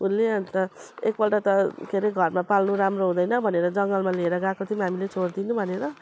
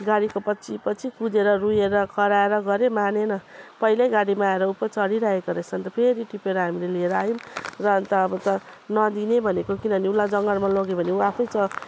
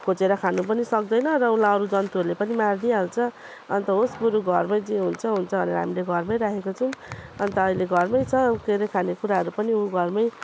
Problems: none marked